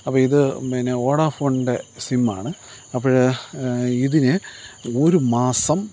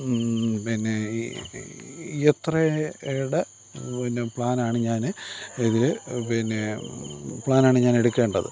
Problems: none marked